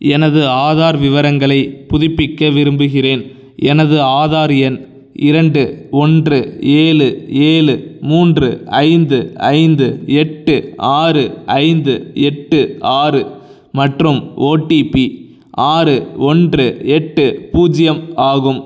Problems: none marked